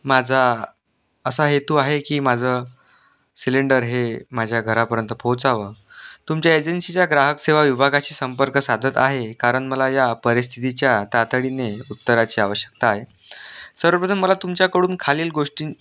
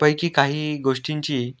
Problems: none marked